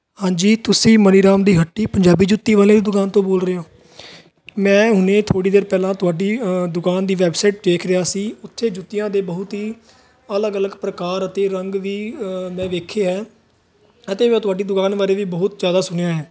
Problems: continuous background conversations